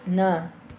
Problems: constant background noise